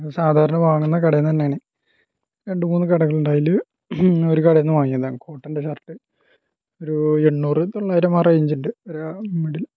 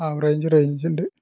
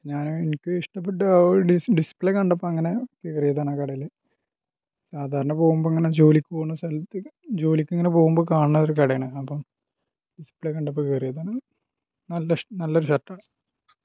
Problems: low volume